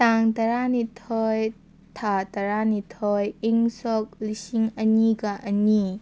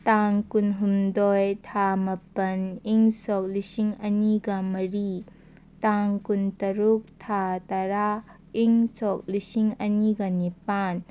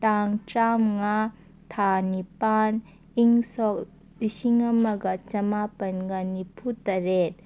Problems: none marked